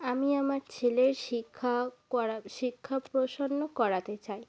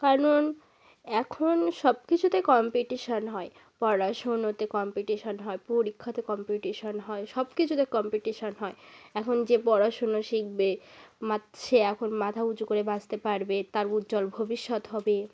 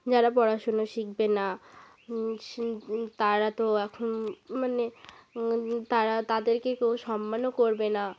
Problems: constant background noise